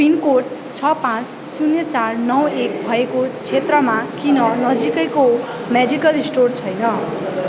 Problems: none marked